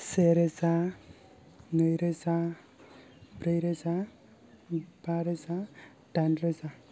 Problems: low volume